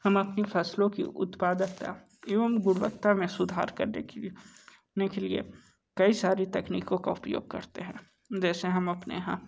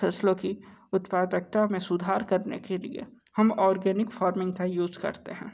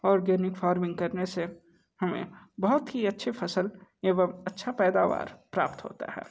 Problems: background sounds at intervals